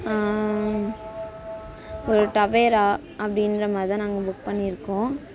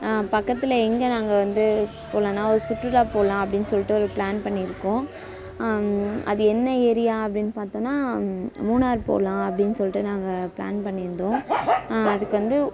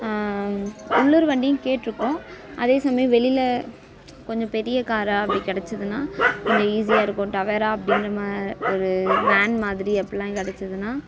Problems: background conversations at intervals